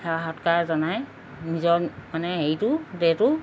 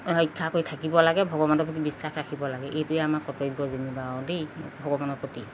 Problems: background sounds at intervals